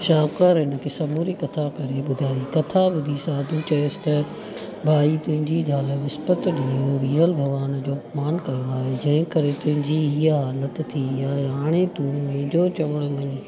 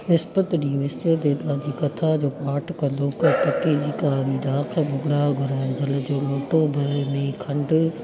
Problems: constant background noise